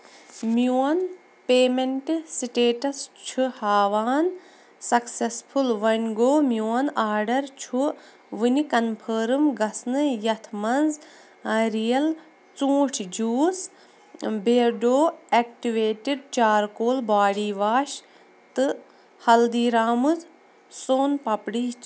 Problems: background sounds at intervals